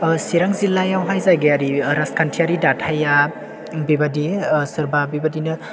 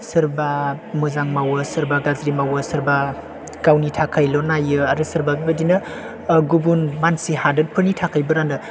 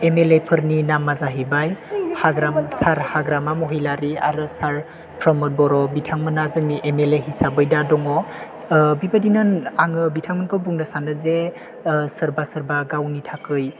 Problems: background sounds at intervals